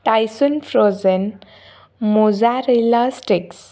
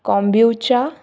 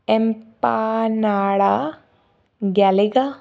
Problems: none marked